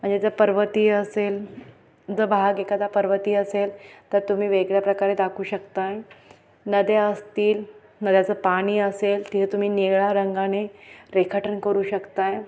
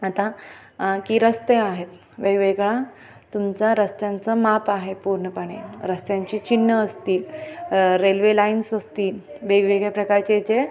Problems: constant background noise, continuous background conversations